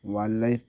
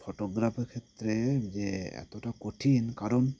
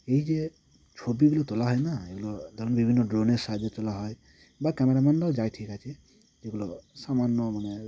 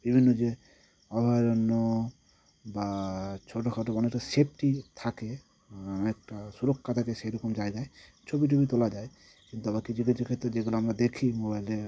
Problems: constant background noise